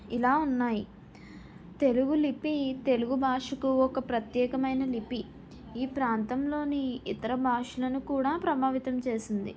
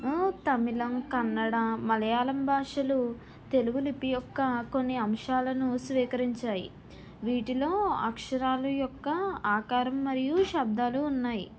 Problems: background sounds at intervals